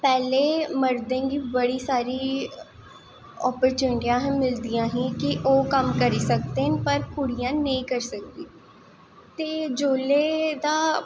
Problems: echo